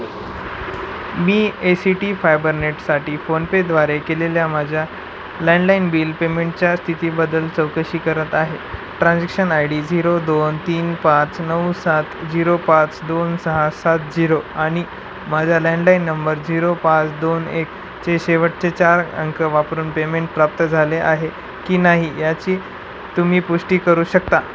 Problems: constant background noise